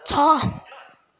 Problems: continuous background conversations